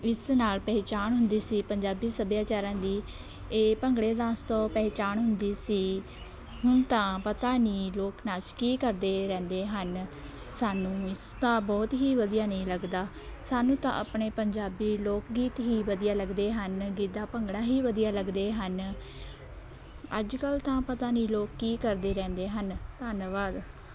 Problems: constant background noise, continuous background conversations